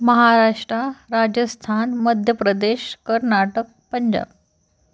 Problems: background sounds at intervals